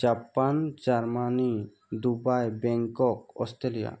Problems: background sounds at intervals